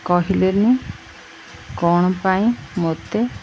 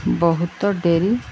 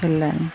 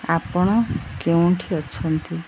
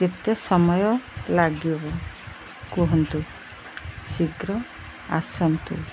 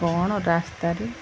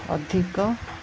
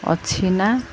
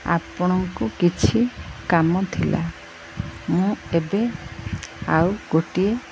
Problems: none marked